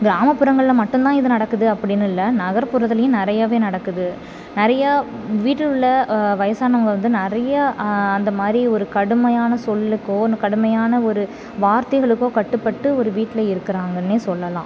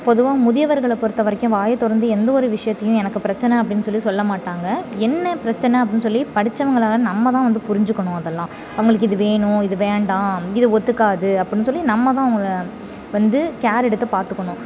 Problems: none marked